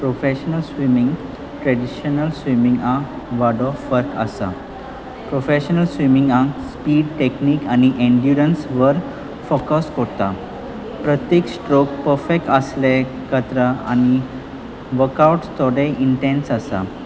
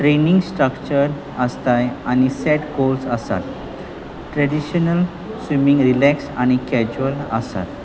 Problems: constant background noise